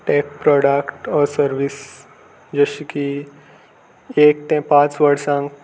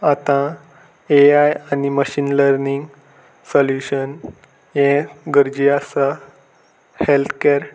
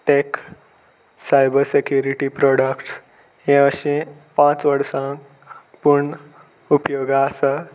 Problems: constant background noise